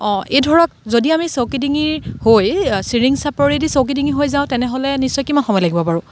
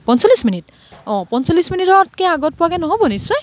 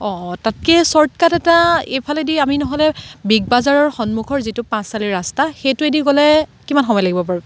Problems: background sounds at intervals